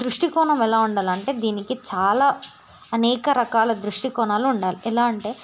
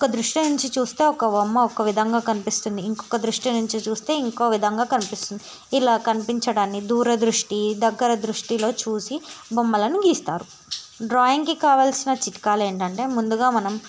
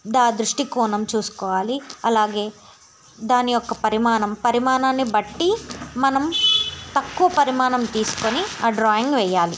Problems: constant background noise